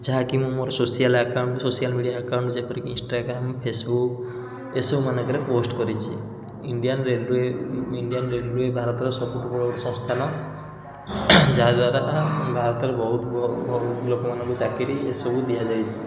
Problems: constant background noise